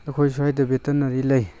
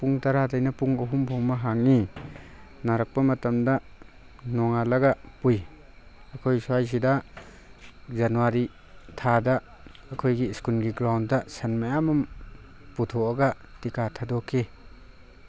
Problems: constant background noise